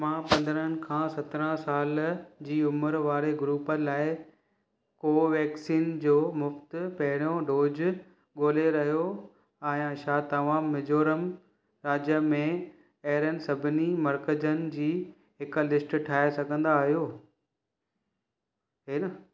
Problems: background sounds at intervals